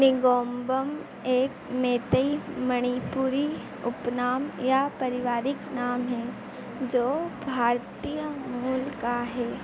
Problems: constant background noise